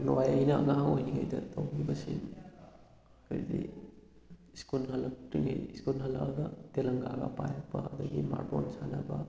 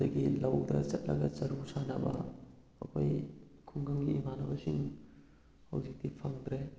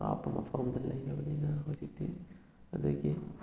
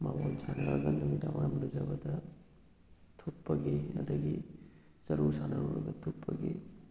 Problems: none marked